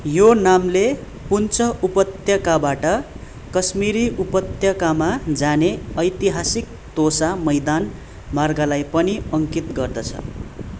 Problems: none marked